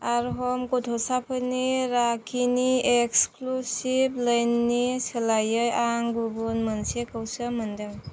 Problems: none marked